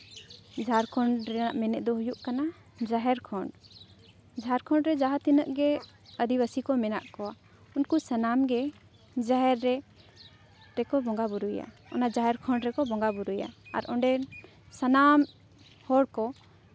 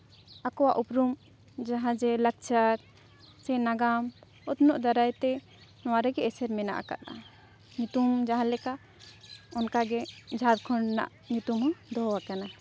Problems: constant background noise